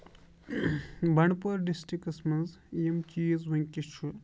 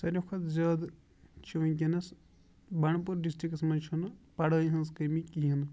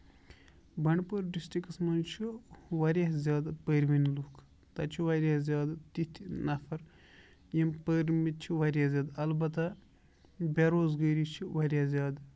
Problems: background sounds at intervals